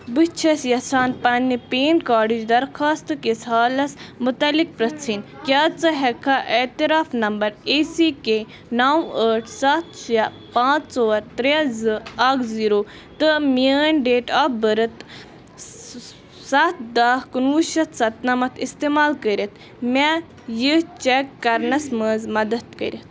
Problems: constant background noise